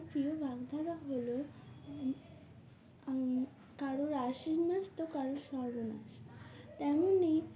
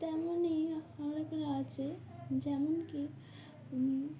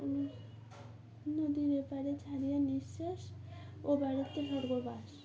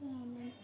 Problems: constant background noise, continuous background conversations